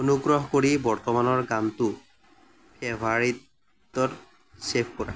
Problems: constant background noise